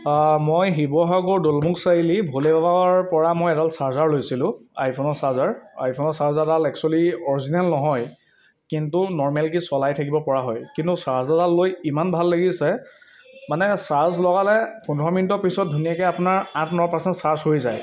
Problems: constant background noise